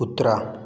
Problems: none marked